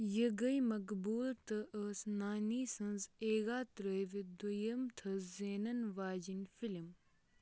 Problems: none marked